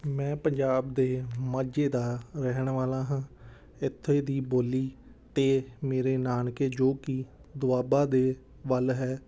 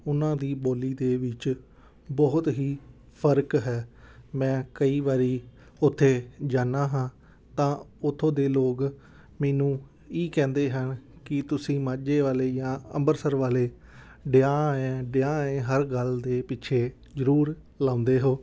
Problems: background sounds at intervals